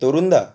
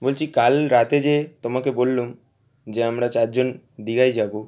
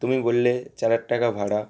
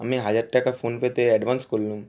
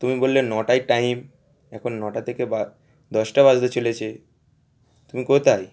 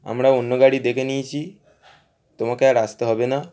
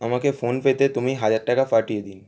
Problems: none marked